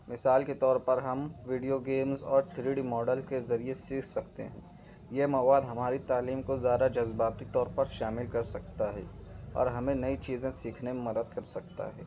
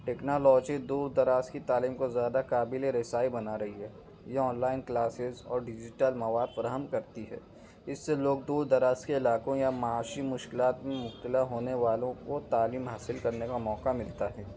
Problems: background sounds at intervals